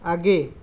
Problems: background sounds at intervals